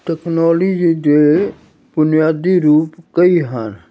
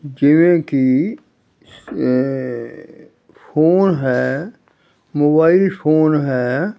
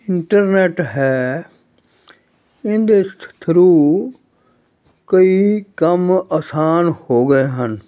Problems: none marked